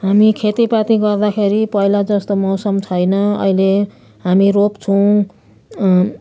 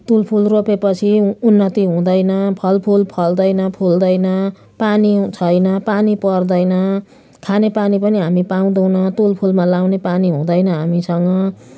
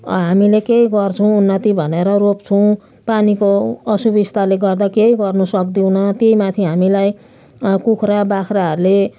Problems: none marked